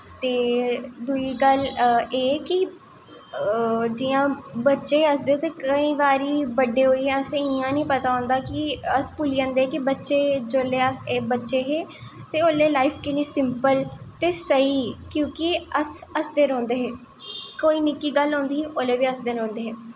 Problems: echo